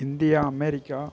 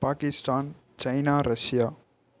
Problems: none marked